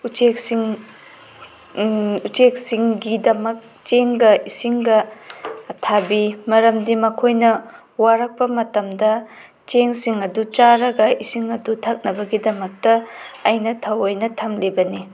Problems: background sounds at intervals